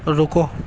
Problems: constant background noise